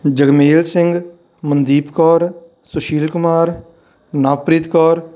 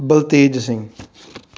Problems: background sounds at intervals